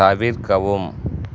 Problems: none marked